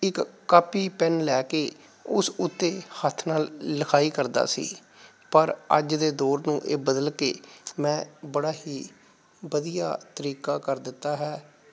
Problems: background sounds at intervals